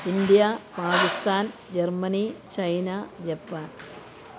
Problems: constant background noise